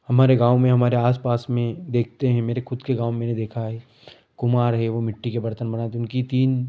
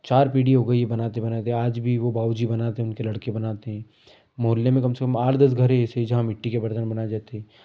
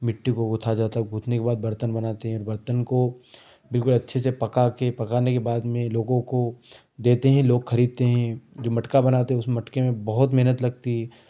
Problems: none marked